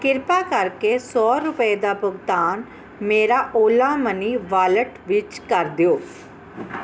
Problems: none marked